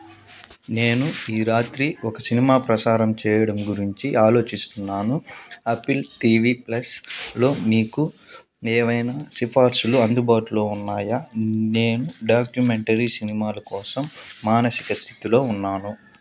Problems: background sounds at intervals